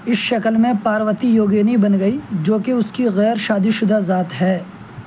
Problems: constant background noise